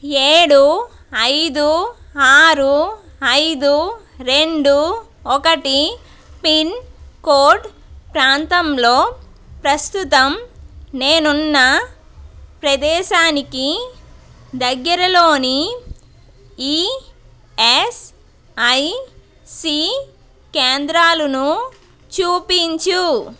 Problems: constant background noise